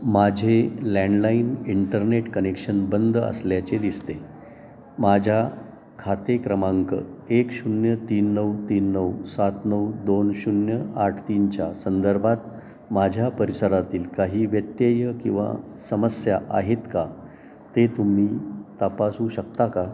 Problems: constant background noise, continuous background conversations